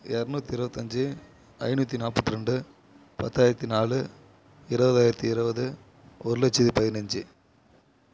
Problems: none marked